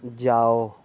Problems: none marked